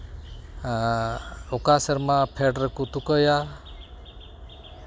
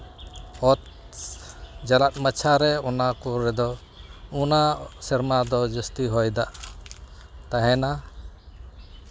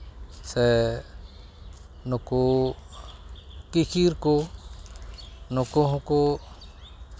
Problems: none marked